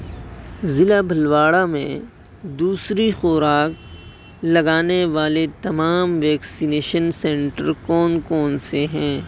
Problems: constant background noise